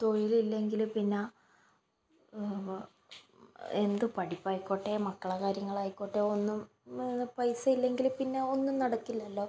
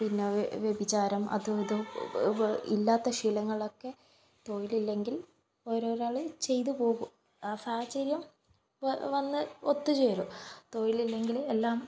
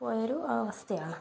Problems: background sounds at intervals